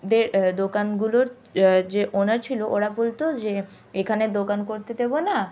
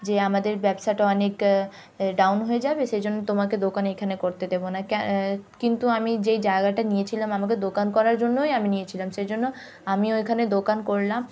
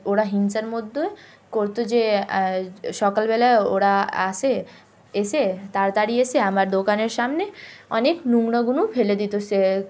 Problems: none marked